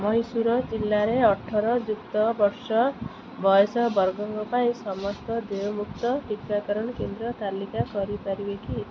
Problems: none marked